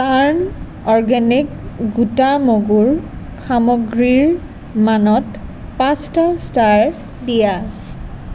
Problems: none marked